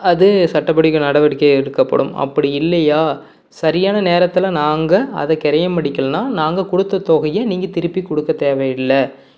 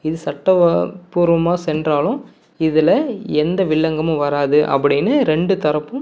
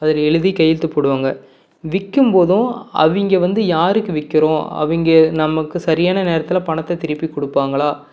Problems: none marked